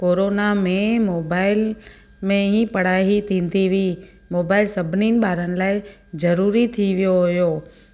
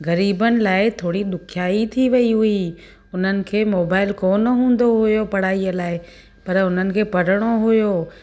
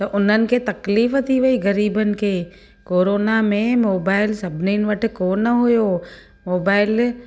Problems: constant background noise